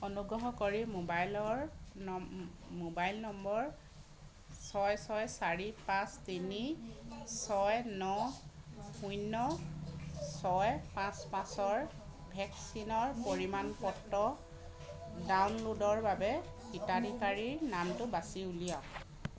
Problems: background sounds at intervals, continuous background conversations